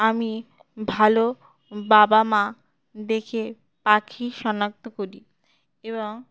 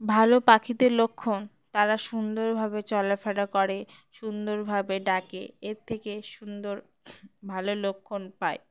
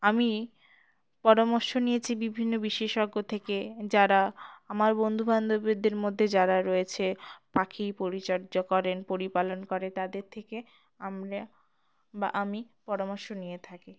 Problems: background sounds at intervals